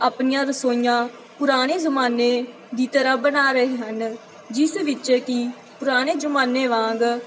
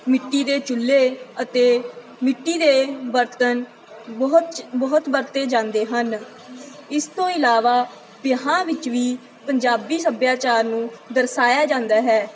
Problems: none marked